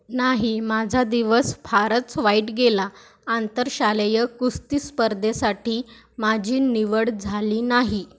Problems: none marked